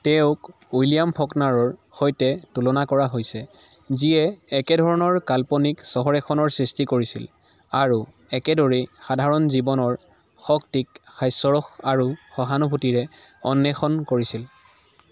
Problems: background sounds at intervals